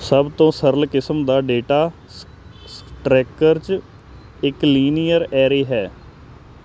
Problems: constant background noise